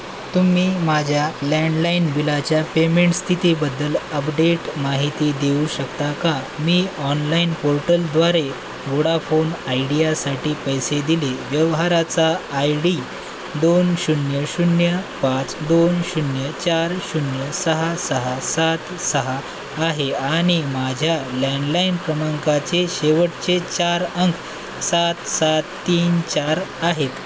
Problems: constant background noise